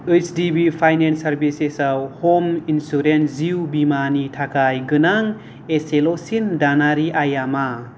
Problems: none marked